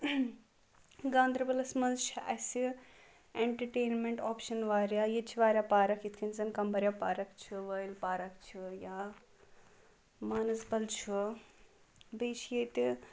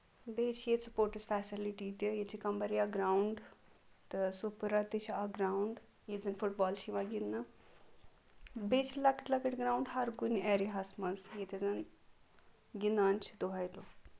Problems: background sounds at intervals